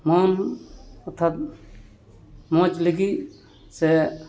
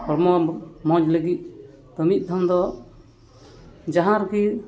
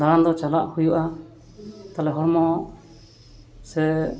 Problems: none marked